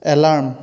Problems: constant background noise